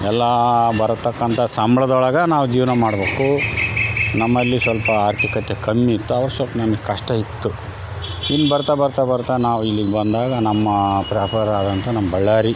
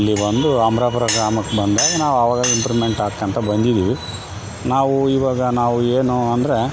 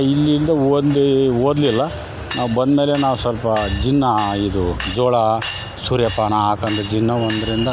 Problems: constant background noise